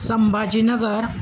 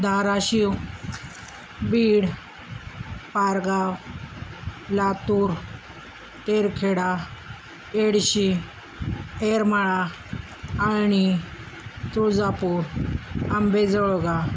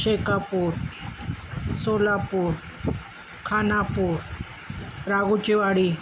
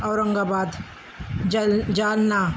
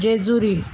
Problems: none marked